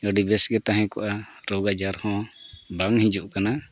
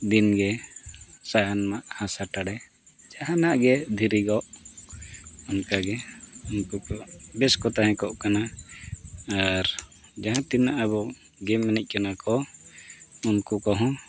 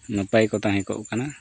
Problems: constant background noise